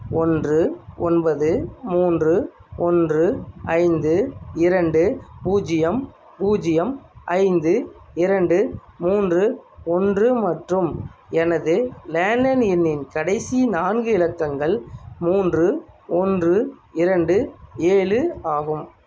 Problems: none marked